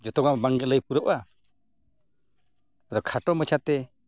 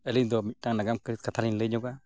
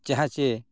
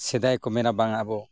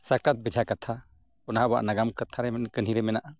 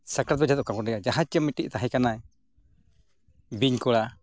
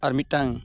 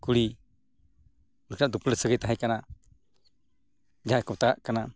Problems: none marked